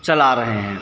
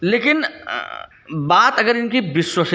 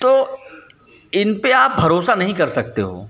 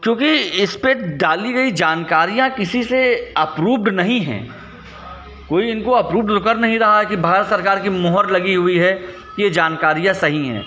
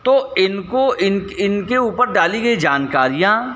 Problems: none marked